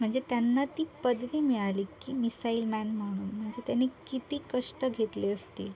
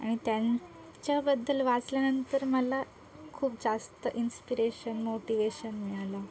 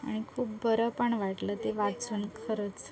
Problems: constant background noise, continuous background conversations